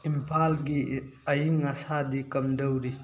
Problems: constant background noise